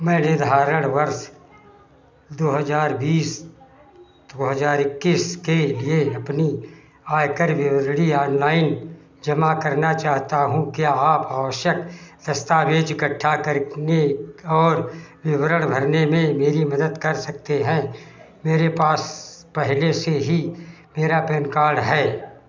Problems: none marked